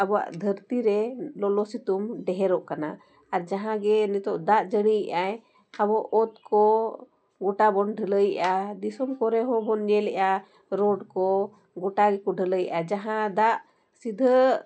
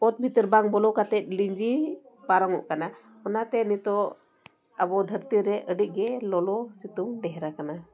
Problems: background conversations at intervals